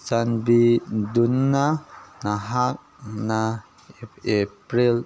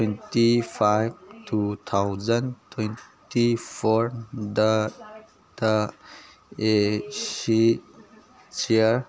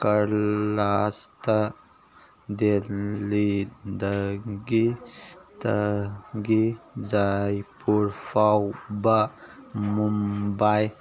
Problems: background sounds at intervals, background conversations at intervals